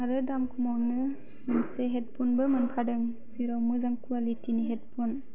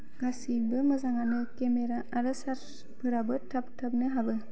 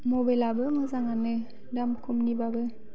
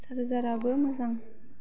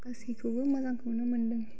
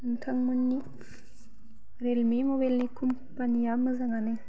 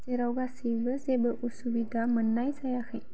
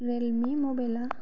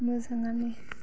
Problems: none marked